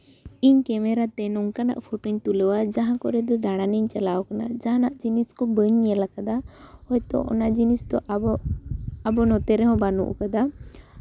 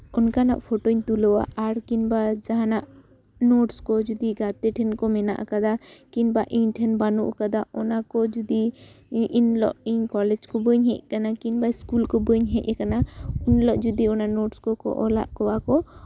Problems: background sounds at intervals